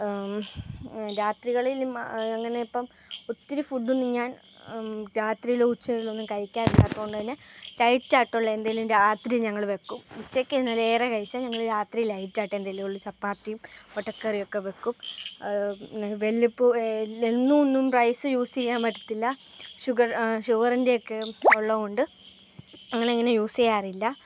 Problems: none marked